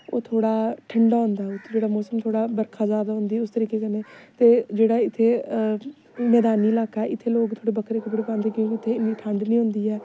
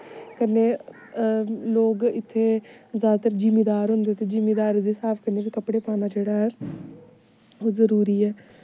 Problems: constant background noise